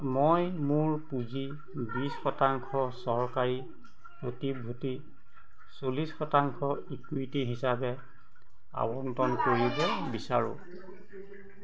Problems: constant background noise